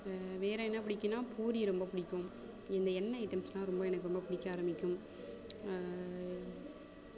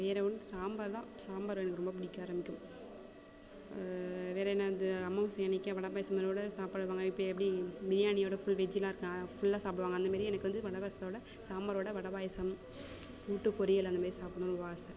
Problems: constant background noise, background conversations at intervals